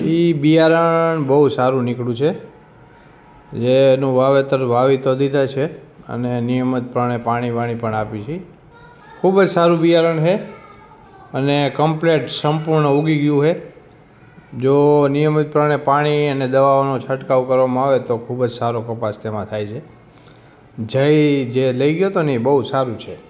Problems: background conversations at intervals